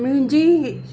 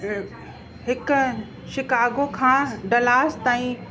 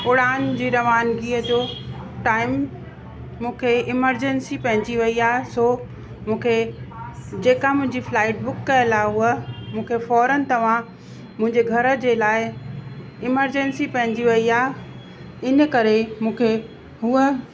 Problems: constant background noise, echo